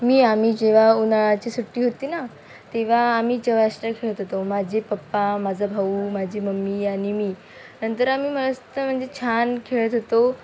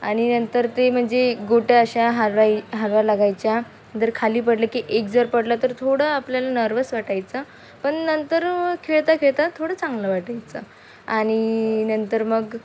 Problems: none marked